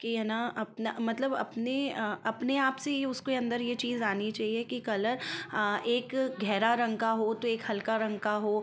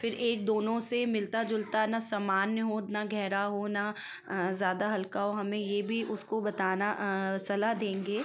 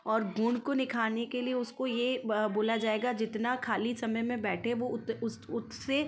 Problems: constant background noise, continuous background conversations